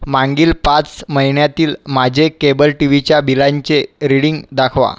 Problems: none marked